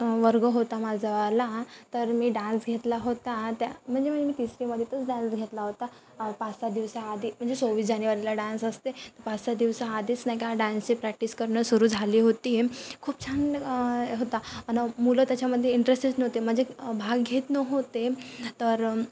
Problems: constant background noise